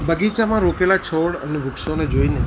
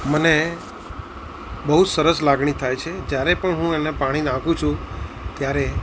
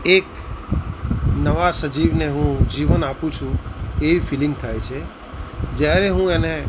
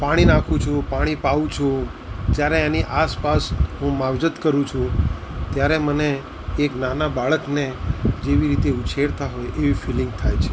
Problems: constant background noise